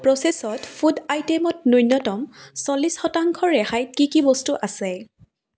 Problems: background sounds at intervals